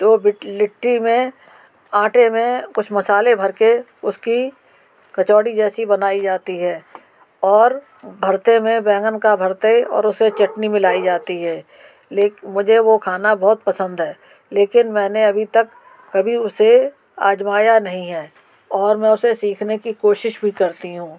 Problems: background sounds at intervals